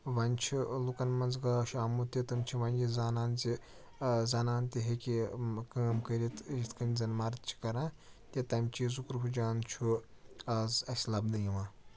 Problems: low volume